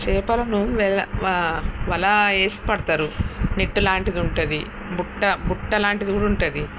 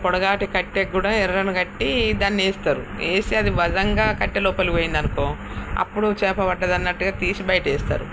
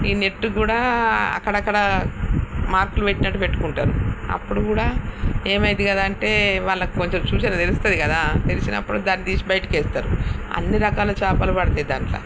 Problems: constant background noise